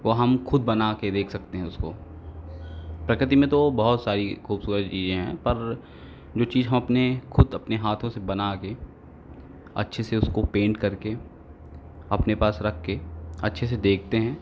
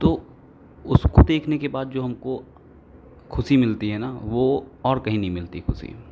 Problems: constant background noise, background conversations at intervals